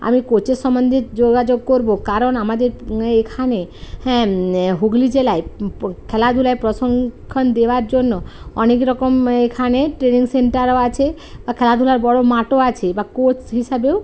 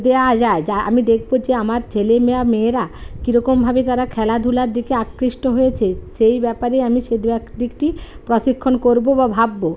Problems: none marked